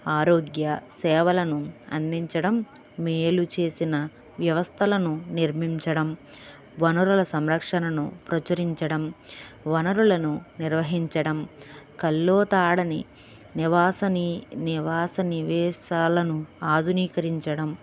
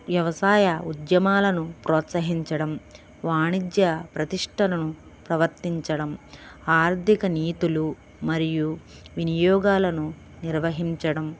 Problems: background sounds at intervals